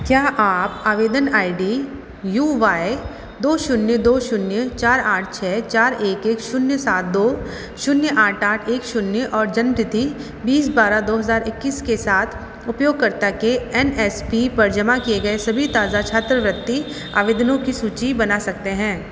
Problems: constant background noise